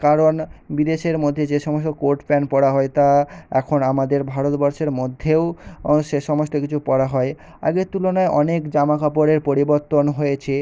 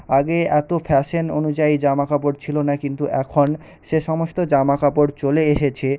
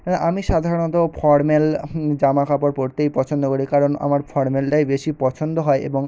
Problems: background sounds at intervals